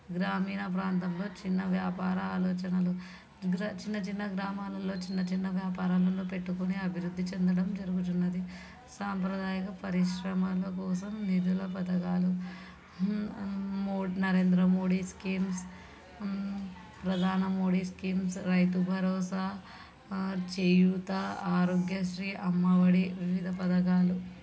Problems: background sounds at intervals